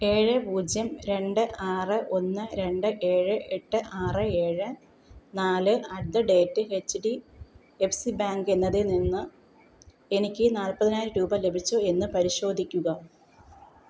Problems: none marked